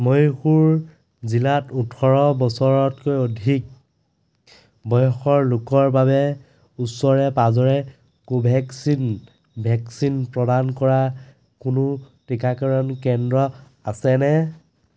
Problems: background sounds at intervals